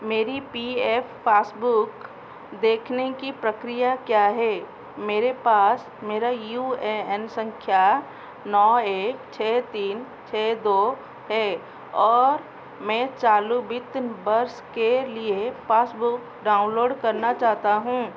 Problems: constant background noise